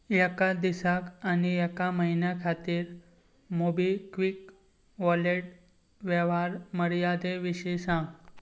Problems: background sounds at intervals